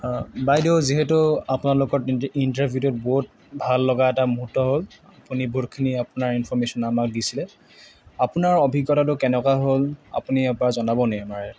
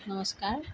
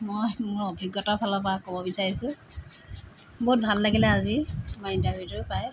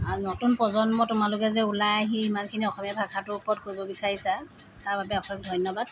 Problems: constant background noise